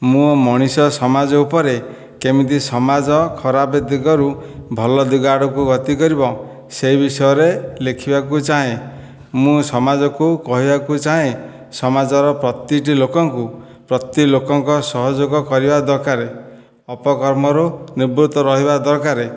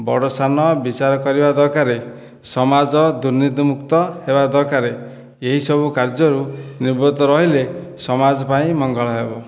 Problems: none marked